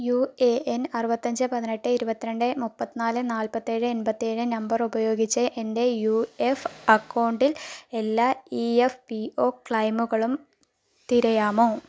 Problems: low volume